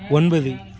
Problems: continuous background conversations